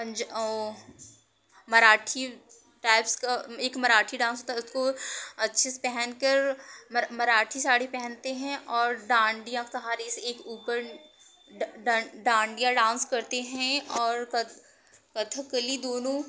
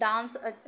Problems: constant background noise